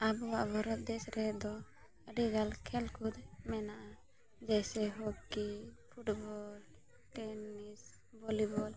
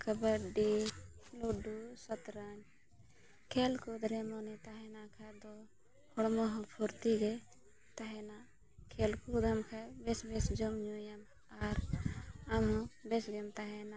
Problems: background sounds at intervals